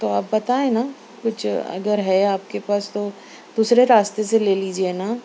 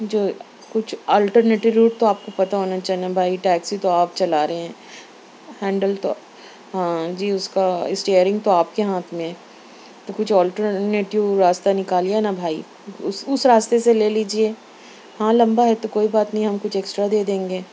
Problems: none marked